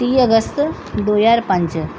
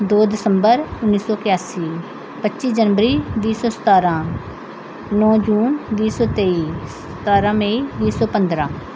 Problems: constant background noise